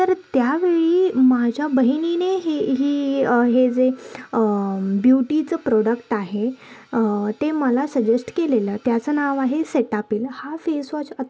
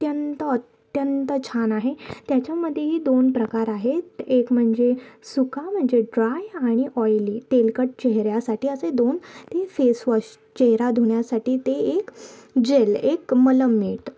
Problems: none marked